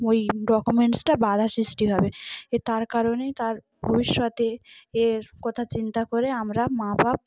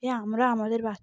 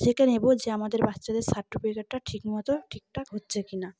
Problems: background sounds at intervals, background conversations at intervals